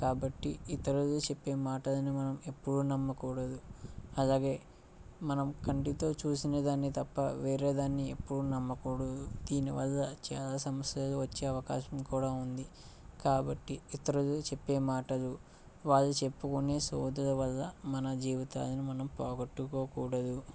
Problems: low volume